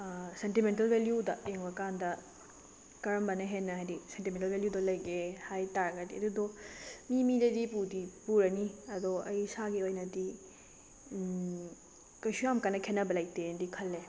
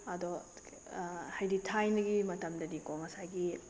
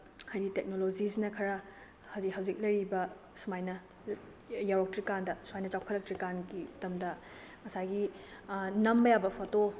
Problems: background sounds at intervals